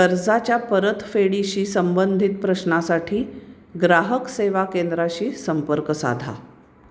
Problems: constant background noise